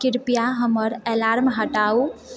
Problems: background sounds at intervals